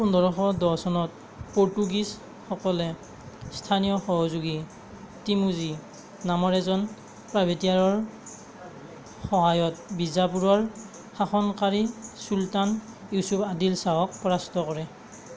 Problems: constant background noise